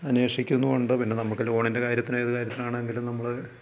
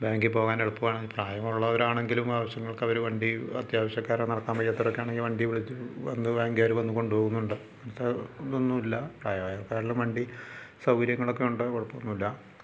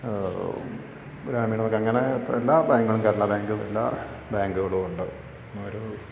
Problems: low volume